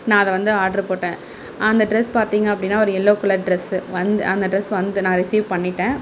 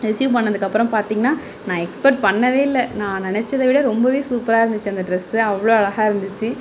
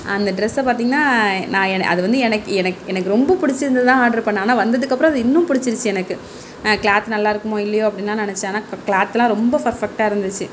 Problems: background sounds at intervals